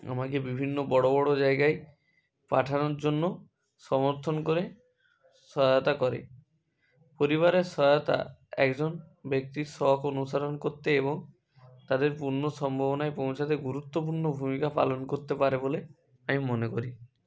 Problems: none marked